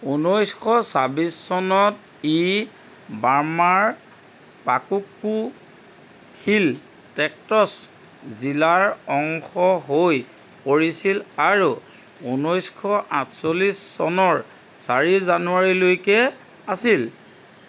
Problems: background sounds at intervals